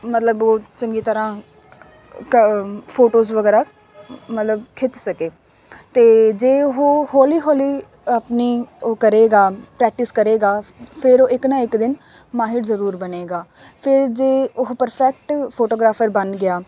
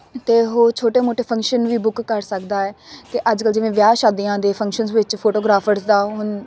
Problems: none marked